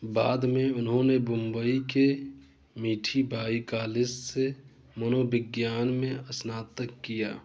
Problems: none marked